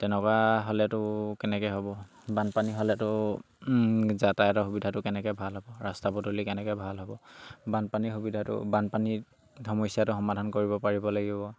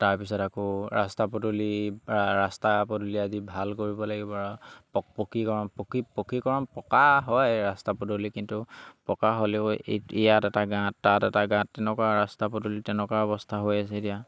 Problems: none marked